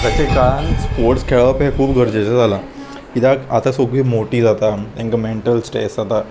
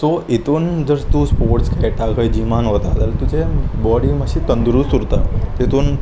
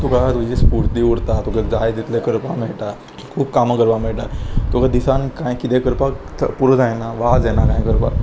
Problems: constant background noise